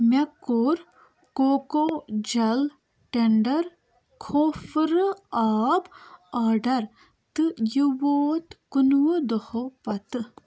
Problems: none marked